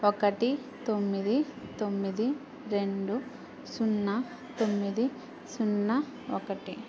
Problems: constant background noise